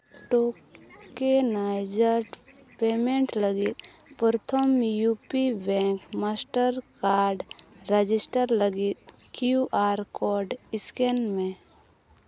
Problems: background sounds at intervals